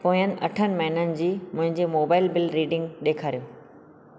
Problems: constant background noise